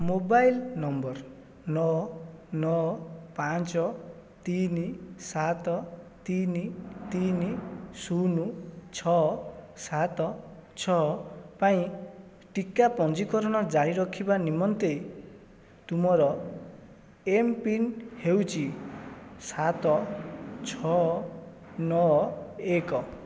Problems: constant background noise, continuous background conversations